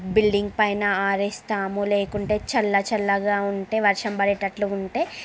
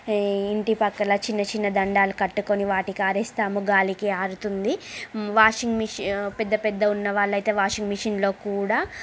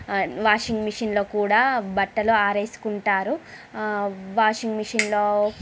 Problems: constant background noise, background conversations at intervals